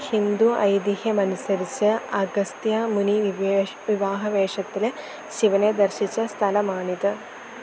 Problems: constant background noise